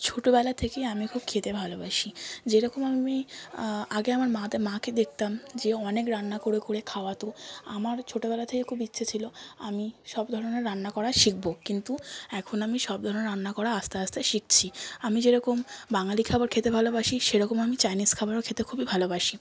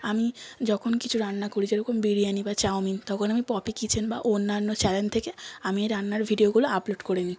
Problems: background sounds at intervals, continuous background conversations